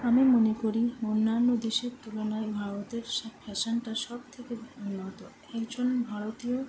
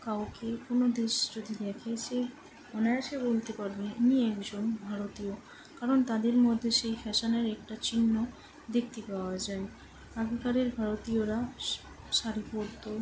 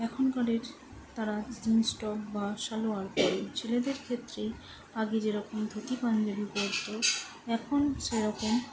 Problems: constant background noise